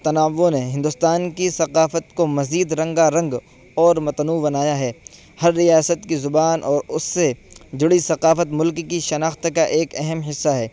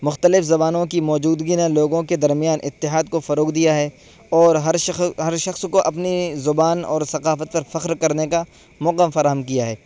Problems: constant background noise